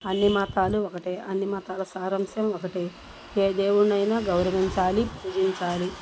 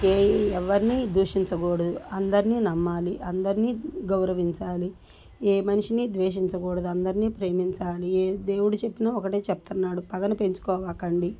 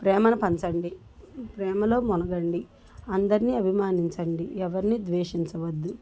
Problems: constant background noise